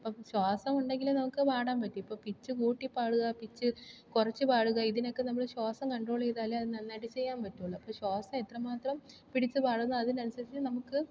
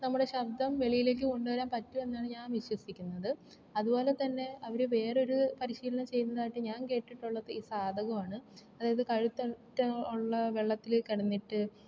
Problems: low volume